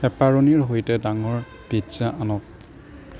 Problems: background sounds at intervals